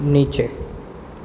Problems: constant background noise